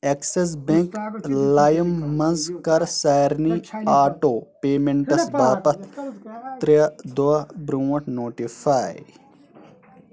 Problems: background sounds at intervals